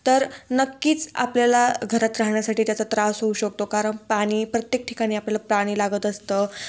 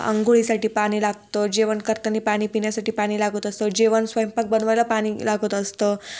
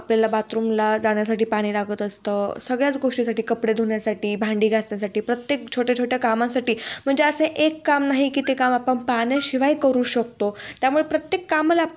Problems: none marked